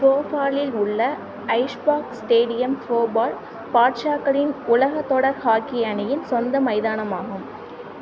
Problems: constant background noise